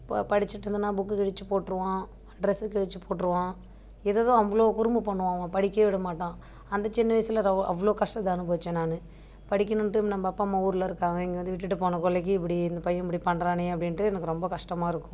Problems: none marked